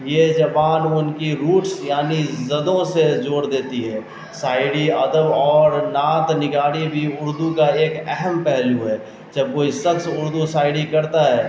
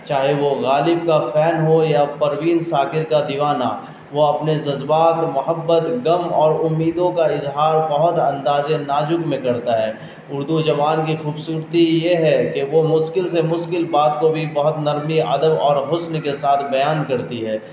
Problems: constant background noise